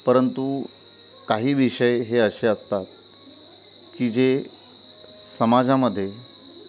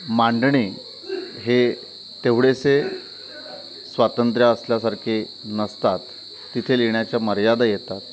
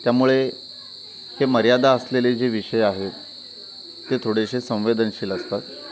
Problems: constant background noise, continuous background conversations